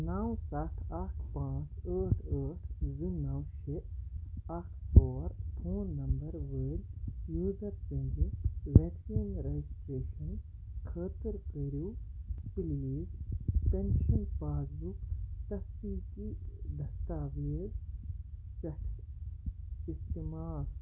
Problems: background sounds at intervals, low volume